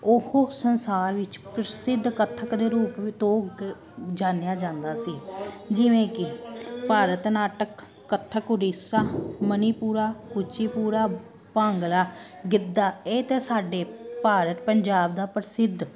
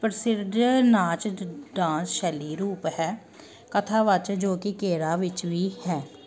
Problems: none marked